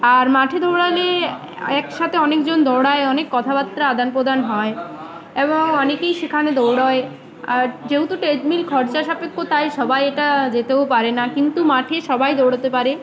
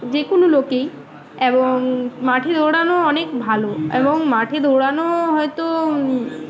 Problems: constant background noise, continuous background conversations